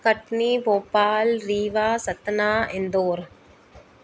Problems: constant background noise